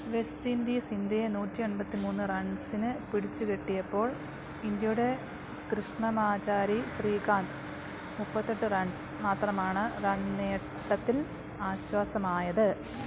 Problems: background sounds at intervals